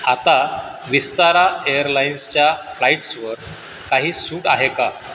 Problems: constant background noise